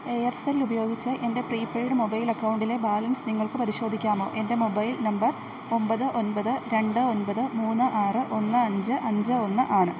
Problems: none marked